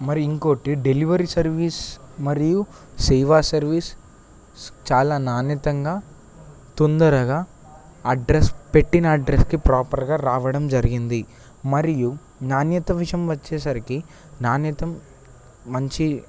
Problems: constant background noise